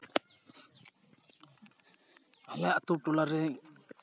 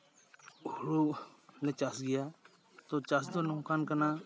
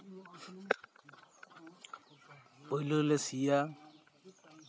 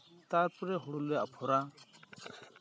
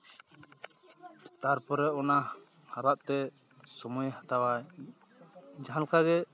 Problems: none marked